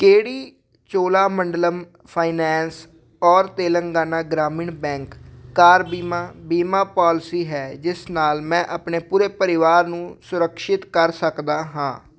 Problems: none marked